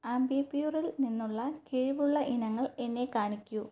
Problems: low volume